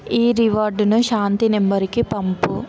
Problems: constant background noise